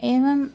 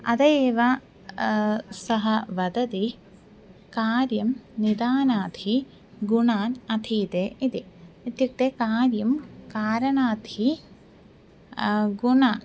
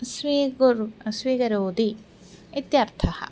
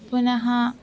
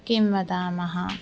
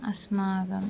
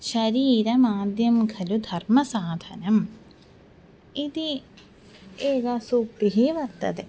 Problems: constant background noise